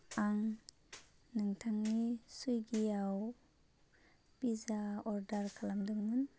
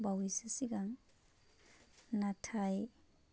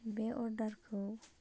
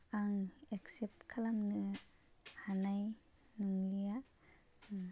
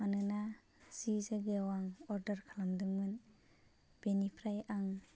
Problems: constant background noise